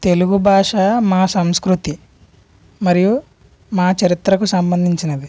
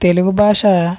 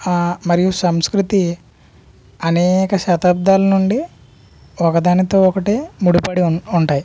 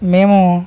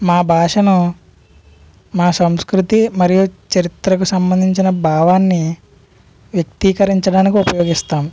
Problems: none marked